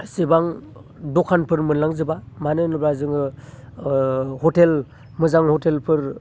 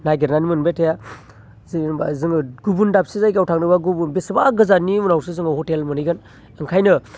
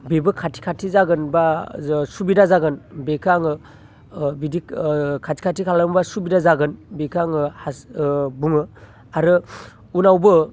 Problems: constant background noise